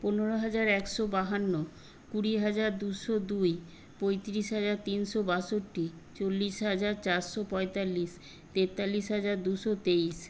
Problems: constant background noise